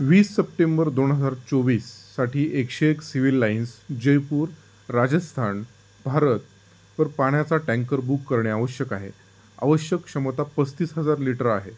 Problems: constant background noise